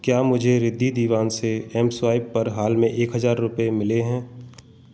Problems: constant background noise